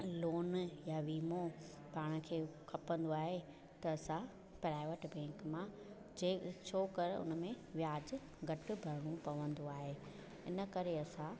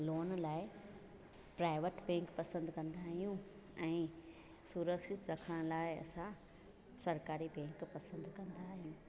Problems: constant background noise